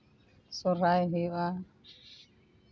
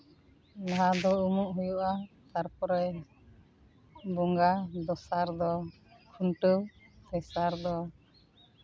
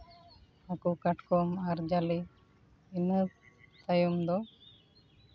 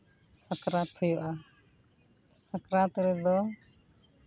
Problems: constant background noise, background conversations at intervals